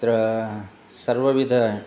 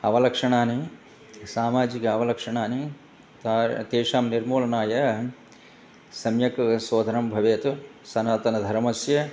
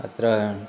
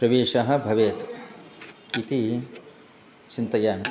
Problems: background conversations at intervals